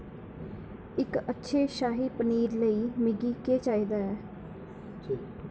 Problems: constant background noise